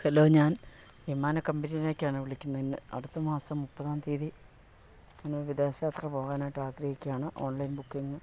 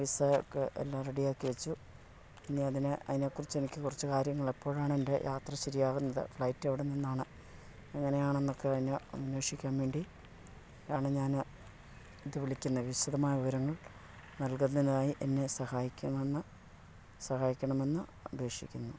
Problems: low volume